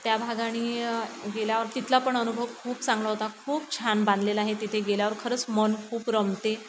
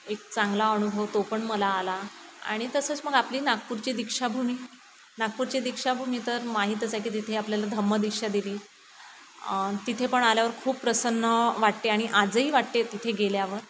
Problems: constant background noise